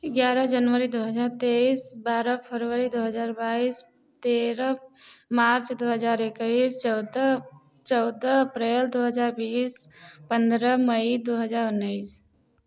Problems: none marked